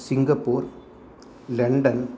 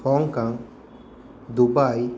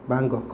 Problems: none marked